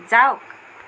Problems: constant background noise